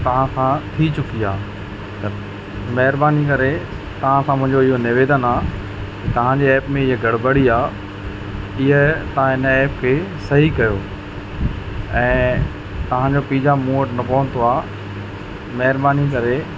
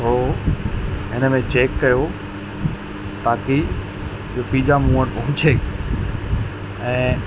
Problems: constant background noise